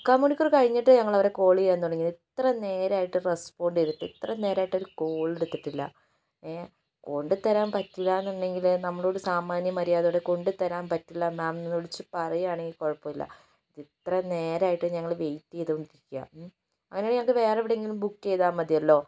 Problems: low volume